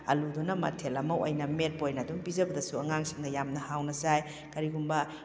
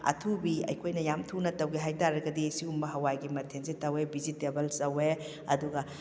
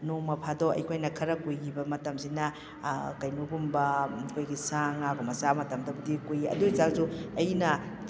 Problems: none marked